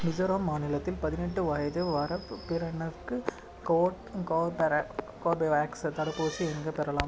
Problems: background sounds at intervals